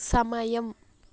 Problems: constant background noise